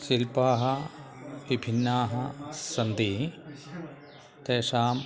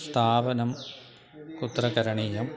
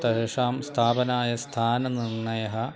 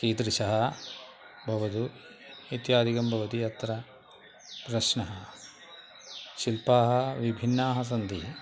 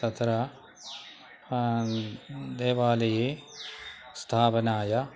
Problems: constant background noise